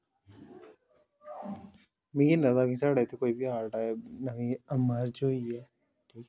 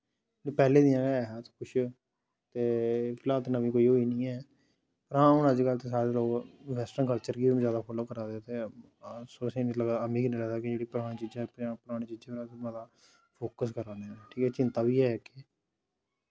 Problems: none marked